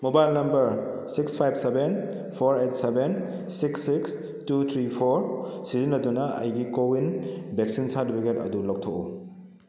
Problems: low volume